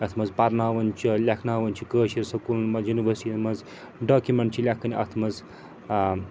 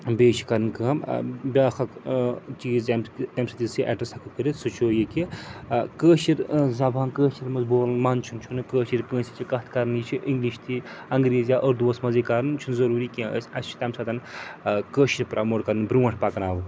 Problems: constant background noise